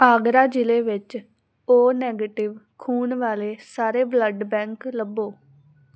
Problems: background conversations at intervals